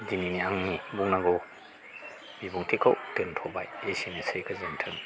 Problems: none marked